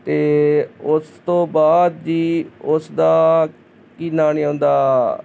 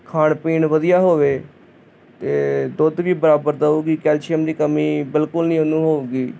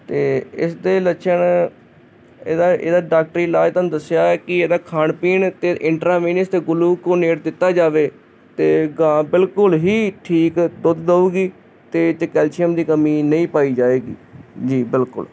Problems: constant background noise